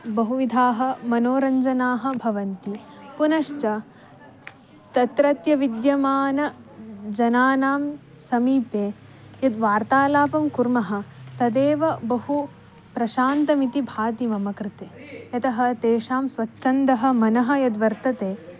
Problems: background sounds at intervals